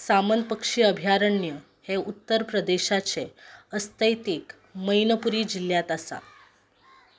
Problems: background sounds at intervals